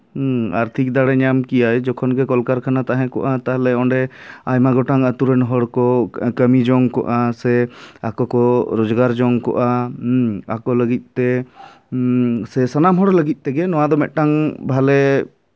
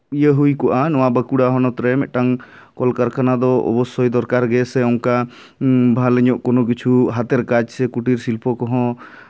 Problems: none marked